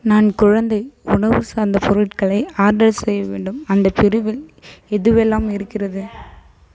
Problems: none marked